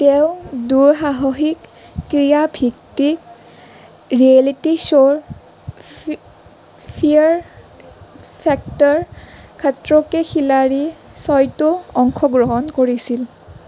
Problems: none marked